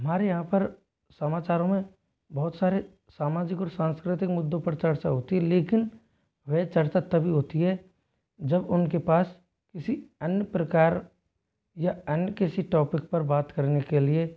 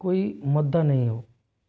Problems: low volume